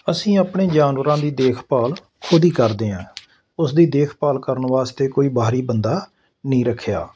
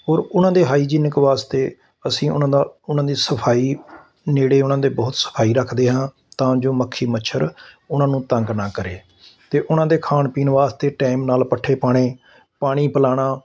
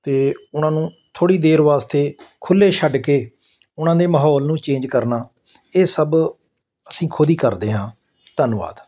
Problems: constant background noise